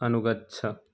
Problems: none marked